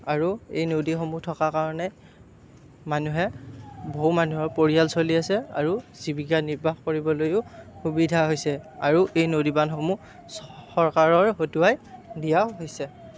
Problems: none marked